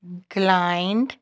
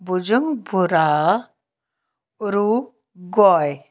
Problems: none marked